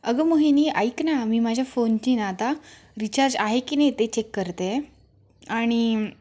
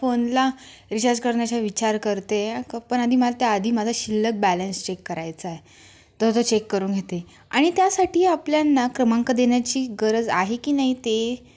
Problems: constant background noise, background conversations at intervals